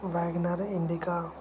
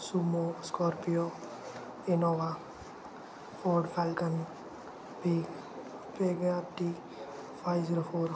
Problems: constant background noise